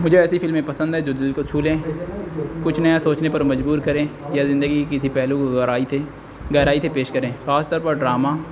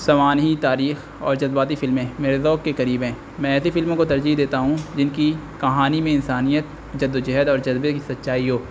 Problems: constant background noise